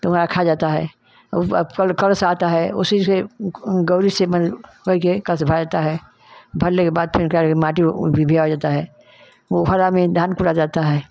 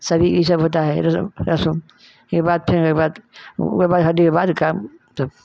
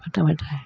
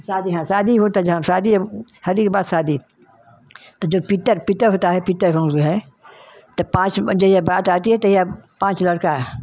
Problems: none marked